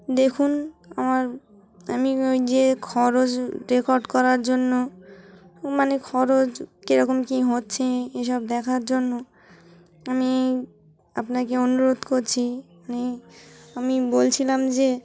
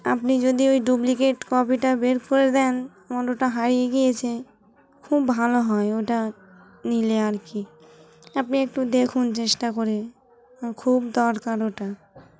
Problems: constant background noise